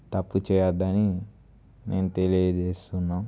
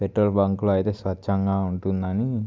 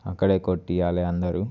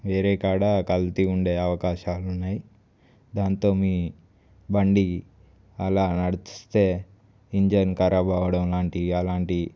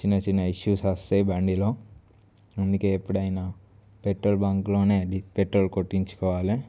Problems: none marked